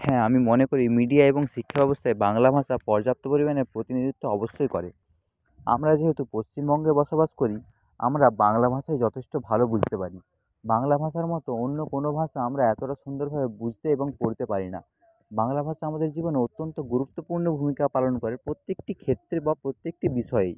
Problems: none marked